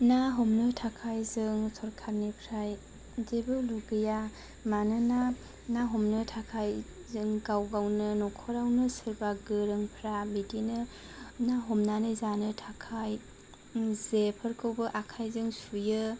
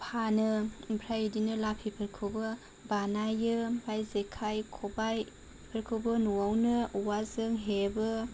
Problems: low volume